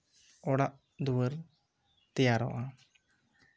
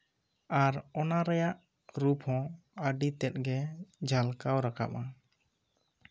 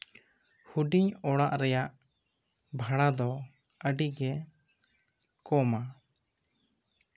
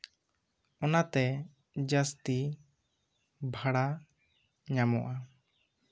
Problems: none marked